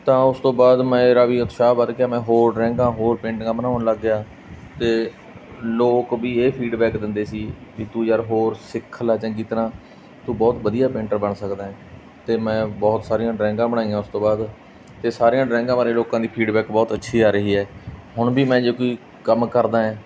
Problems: none marked